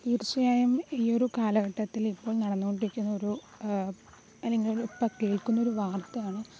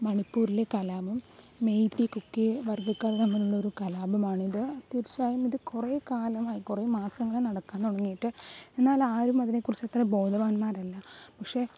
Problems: background sounds at intervals, low volume